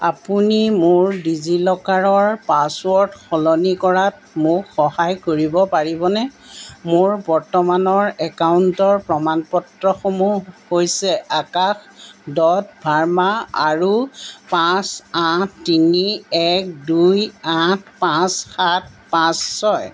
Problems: background sounds at intervals